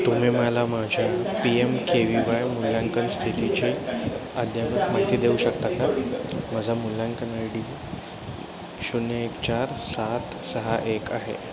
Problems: constant background noise, continuous background conversations